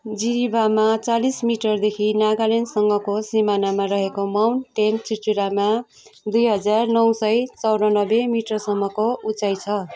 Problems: continuous background conversations